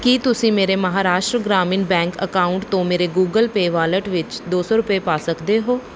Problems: none marked